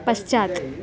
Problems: background conversations at intervals